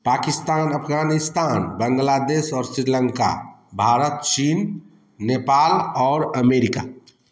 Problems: none marked